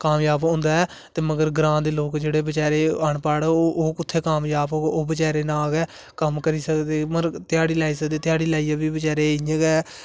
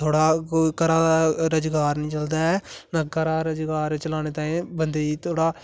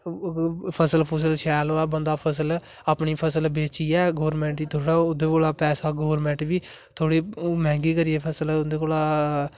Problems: constant background noise